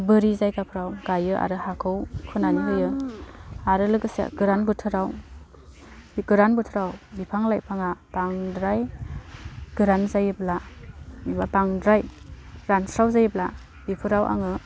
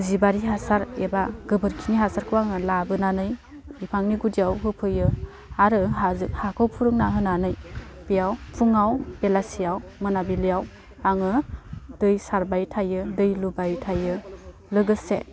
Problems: constant background noise